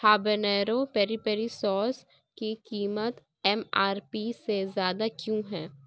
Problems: background sounds at intervals